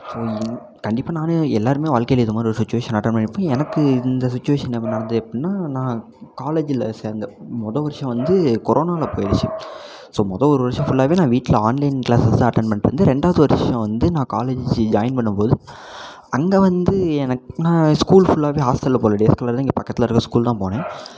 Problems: background sounds at intervals